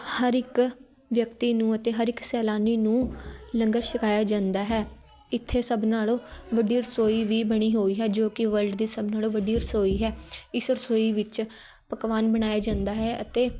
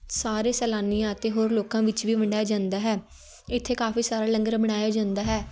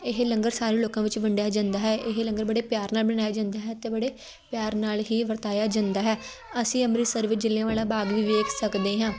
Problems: continuous background conversations